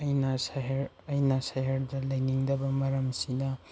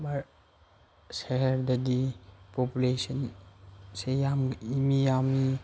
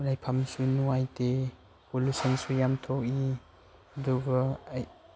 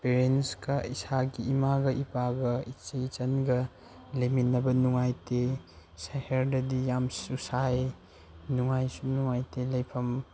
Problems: none marked